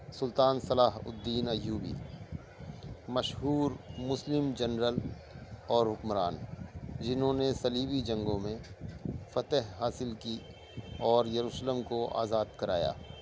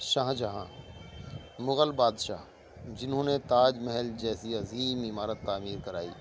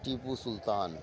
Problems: constant background noise